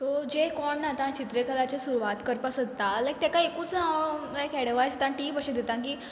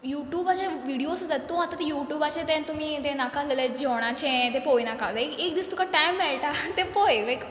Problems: background sounds at intervals